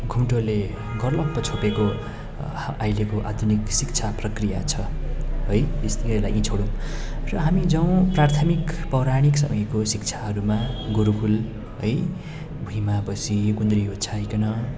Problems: constant background noise